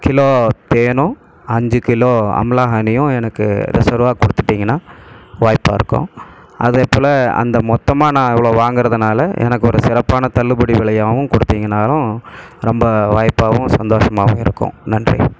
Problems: background sounds at intervals